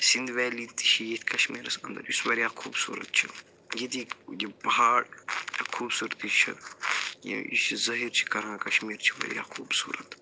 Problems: none marked